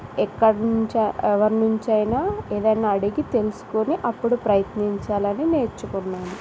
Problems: constant background noise